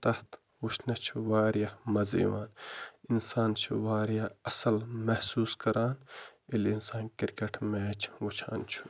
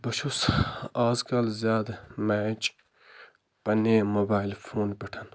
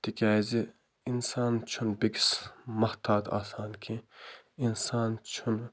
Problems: background sounds at intervals